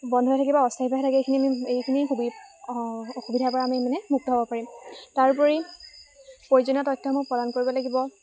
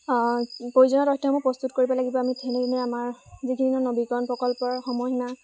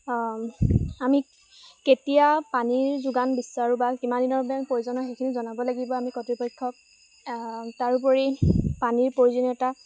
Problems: background sounds at intervals